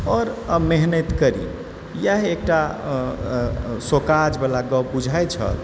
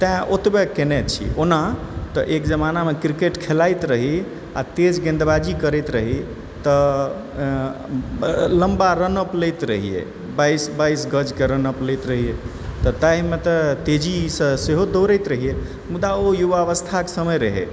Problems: background sounds at intervals, background conversations at intervals